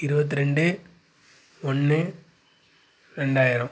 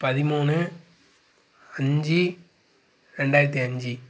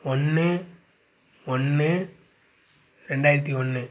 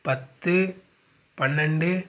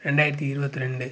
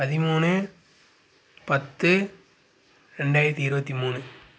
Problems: none marked